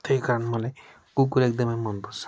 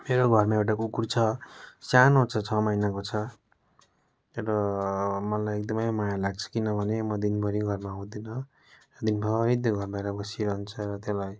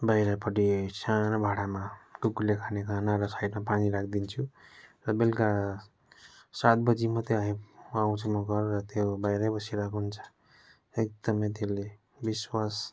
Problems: none marked